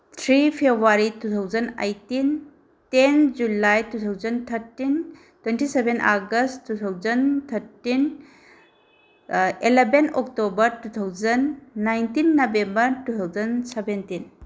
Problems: none marked